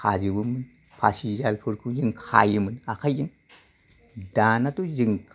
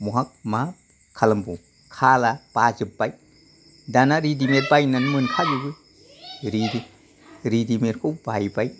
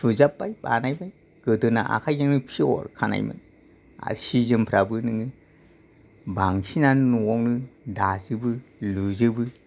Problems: none marked